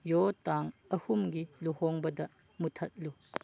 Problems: low volume